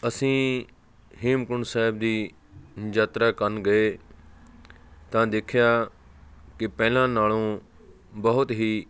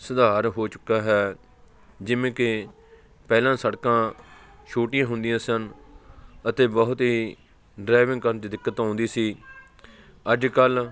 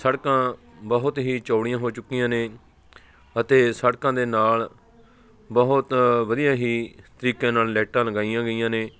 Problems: constant background noise, continuous background conversations